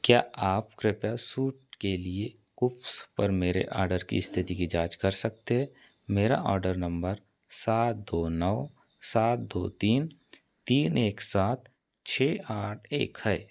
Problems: none marked